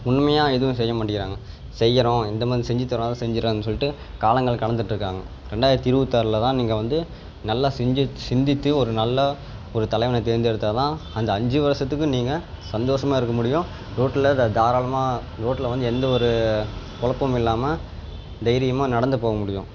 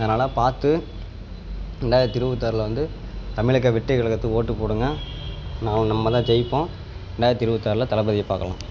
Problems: background sounds at intervals